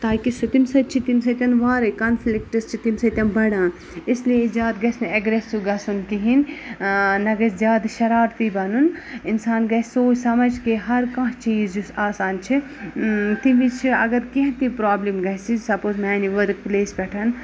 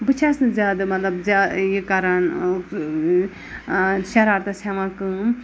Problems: none marked